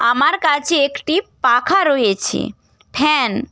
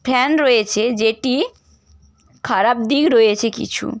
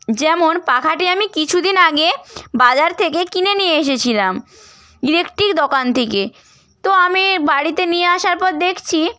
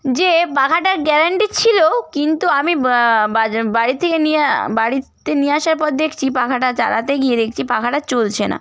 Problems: none marked